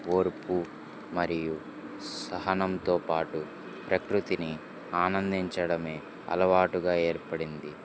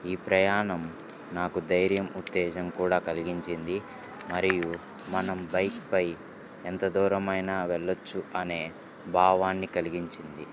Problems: none marked